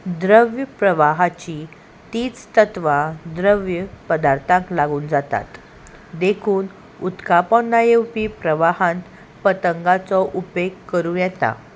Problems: constant background noise